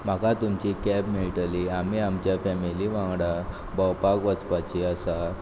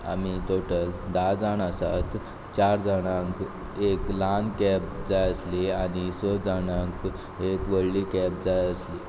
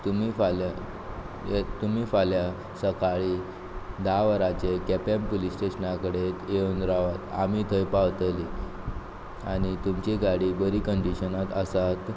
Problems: background sounds at intervals